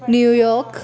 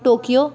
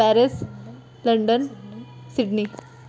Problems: none marked